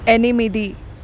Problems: constant background noise